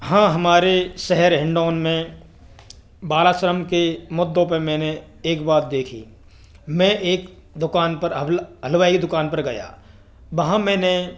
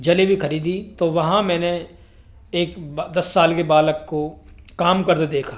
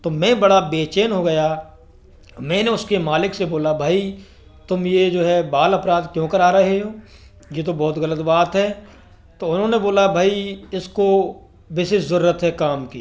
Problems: none marked